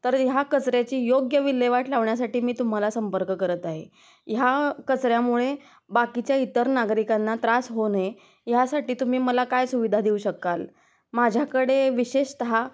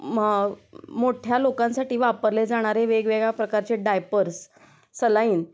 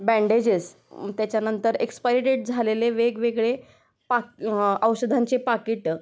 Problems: background sounds at intervals